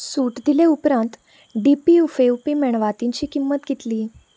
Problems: background sounds at intervals